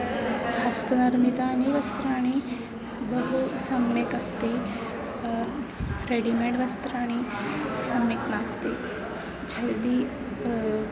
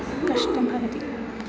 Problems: background sounds at intervals